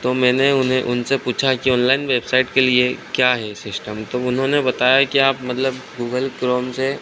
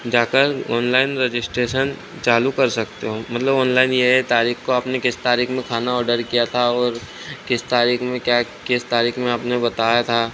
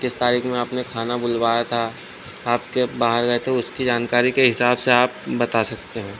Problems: none marked